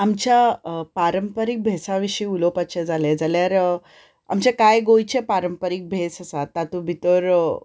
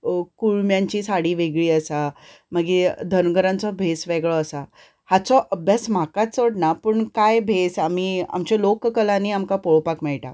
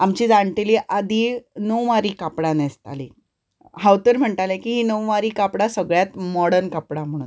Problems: none marked